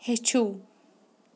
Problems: none marked